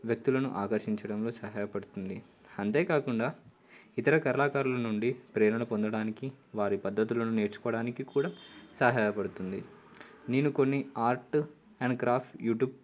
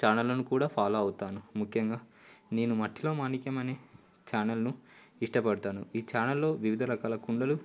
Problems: constant background noise